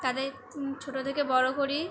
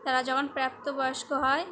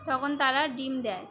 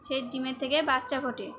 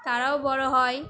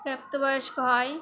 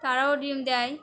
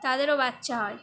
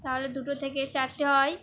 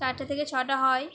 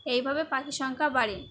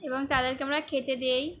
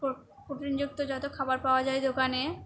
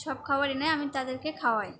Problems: constant background noise, background conversations at intervals